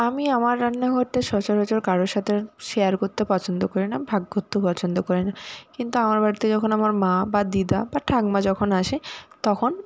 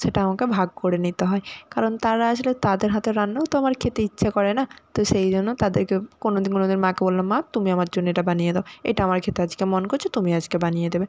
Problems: none marked